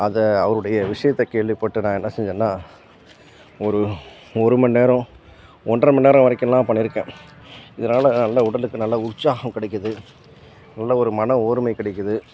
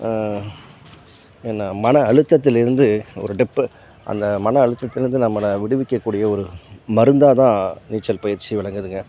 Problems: background sounds at intervals